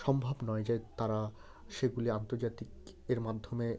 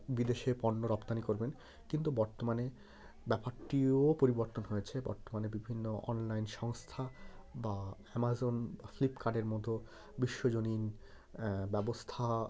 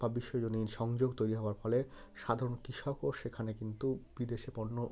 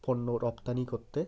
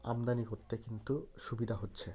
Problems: none marked